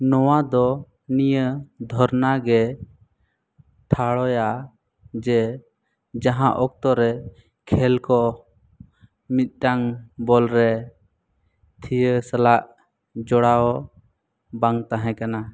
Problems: none marked